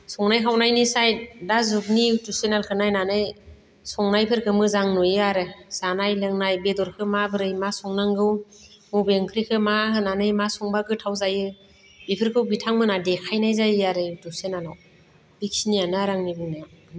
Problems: none marked